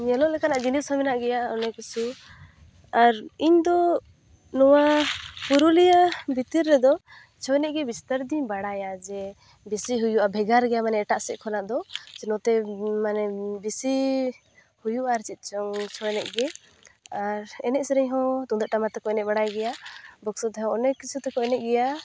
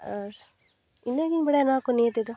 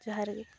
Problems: constant background noise